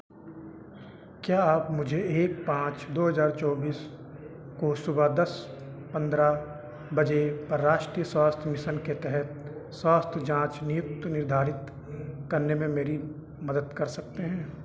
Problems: none marked